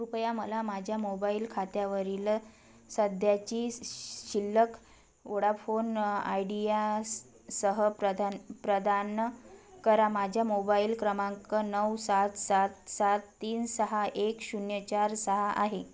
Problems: none marked